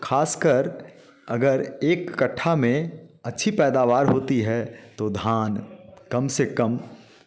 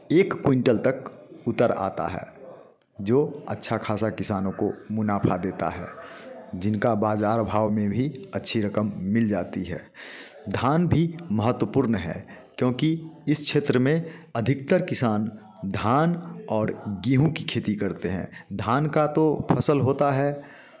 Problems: constant background noise